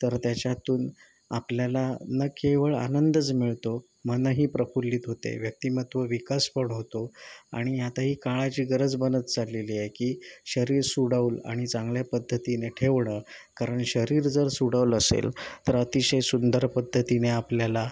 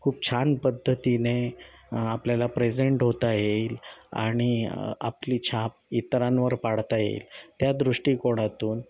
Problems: none marked